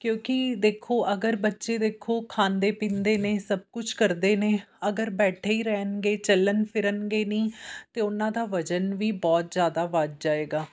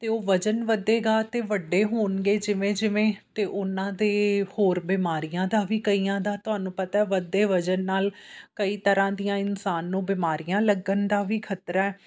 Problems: none marked